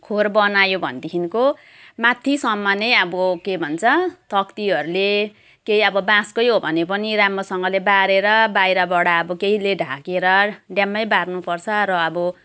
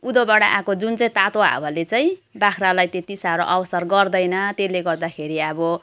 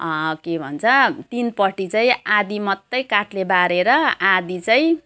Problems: background sounds at intervals